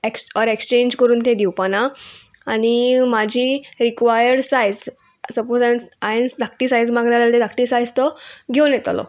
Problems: none marked